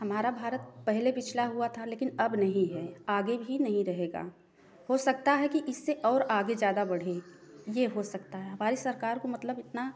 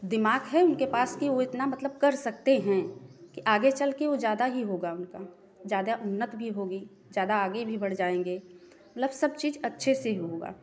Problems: background sounds at intervals